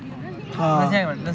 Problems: constant background noise